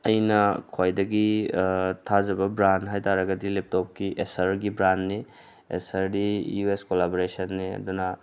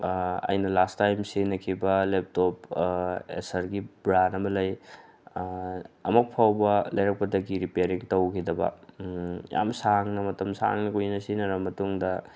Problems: background sounds at intervals